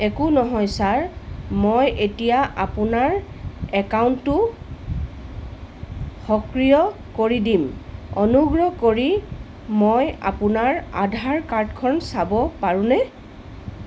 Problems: constant background noise